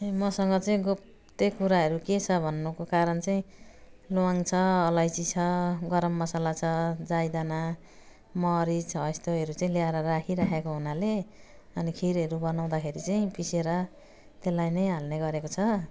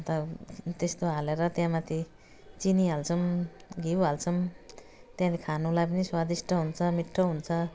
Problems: none marked